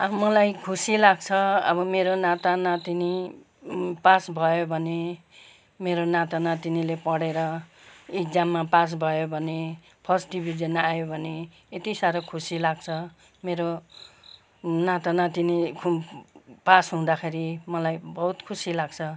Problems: none marked